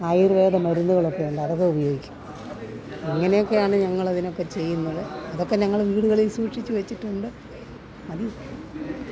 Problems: constant background noise